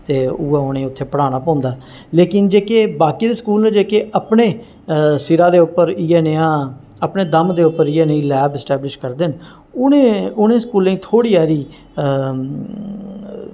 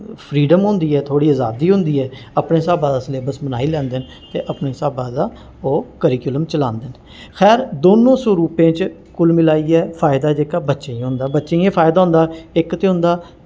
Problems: none marked